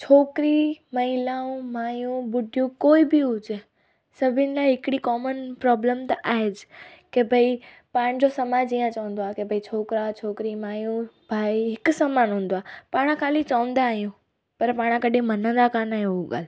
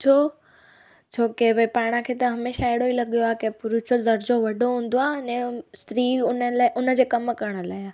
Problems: background sounds at intervals, echo